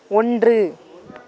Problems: background conversations at intervals